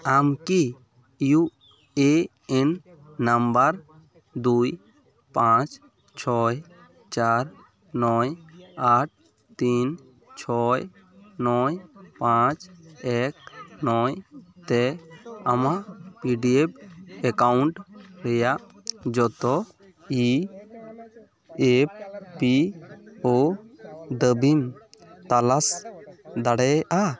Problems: continuous background conversations